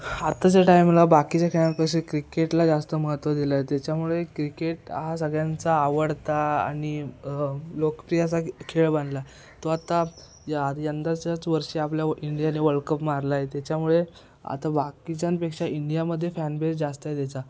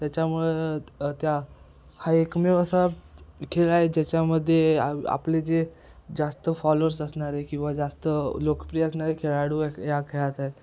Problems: constant background noise